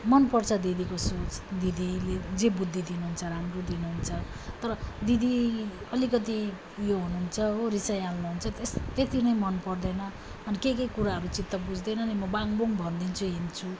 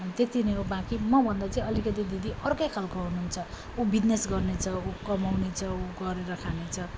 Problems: none marked